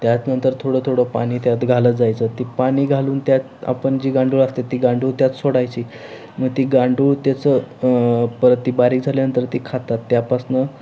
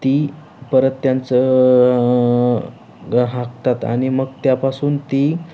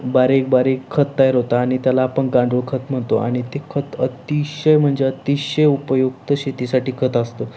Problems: none marked